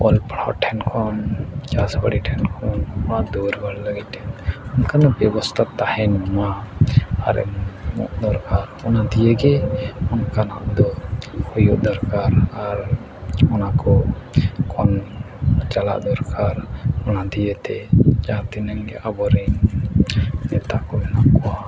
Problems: constant background noise, low volume